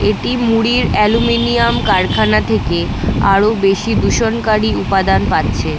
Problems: none marked